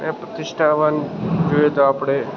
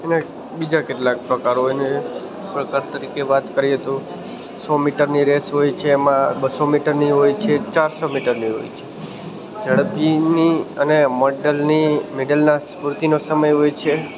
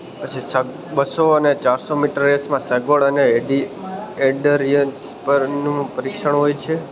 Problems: constant background noise